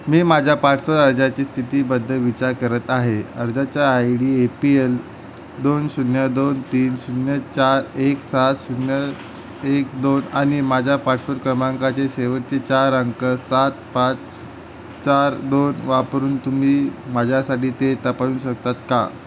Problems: none marked